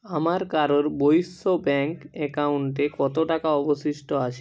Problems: none marked